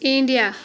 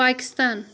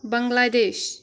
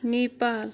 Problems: background sounds at intervals, background conversations at intervals